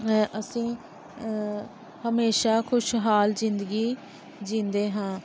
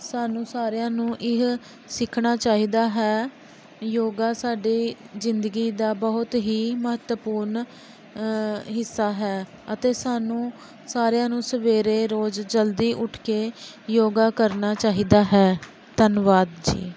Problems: background sounds at intervals